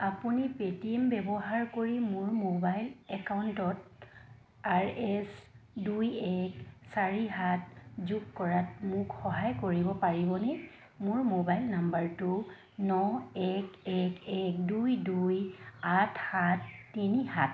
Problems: none marked